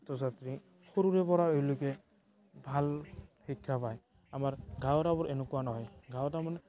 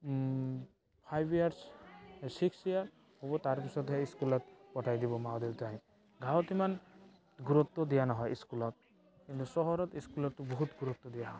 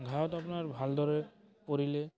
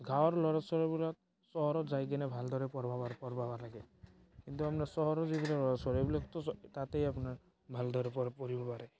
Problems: background sounds at intervals, background conversations at intervals